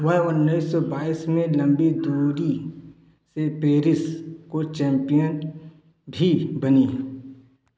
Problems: echo